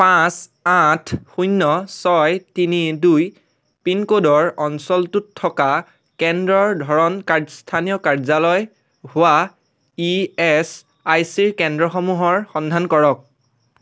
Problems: constant background noise